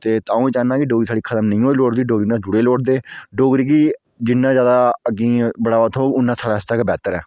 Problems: none marked